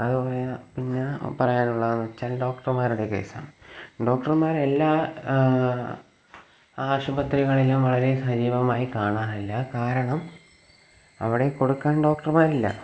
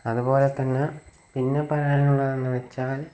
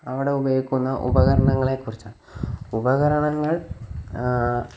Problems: low volume